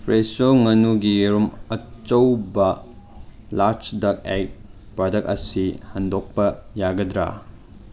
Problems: background sounds at intervals